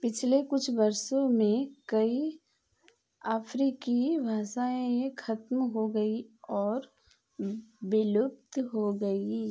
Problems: none marked